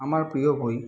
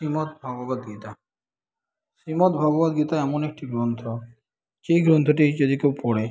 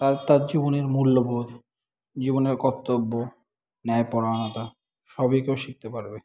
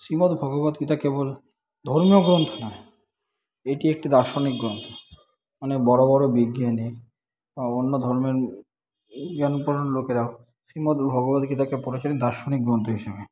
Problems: continuous background conversations